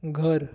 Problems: constant background noise